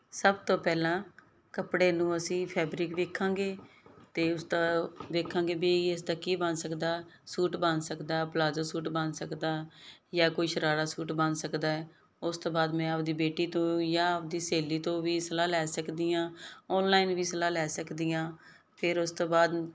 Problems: background sounds at intervals